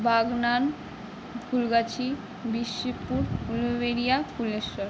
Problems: none marked